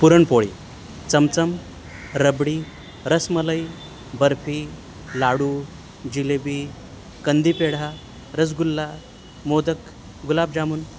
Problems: constant background noise